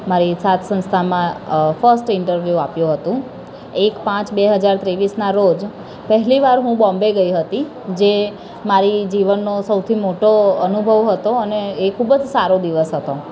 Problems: constant background noise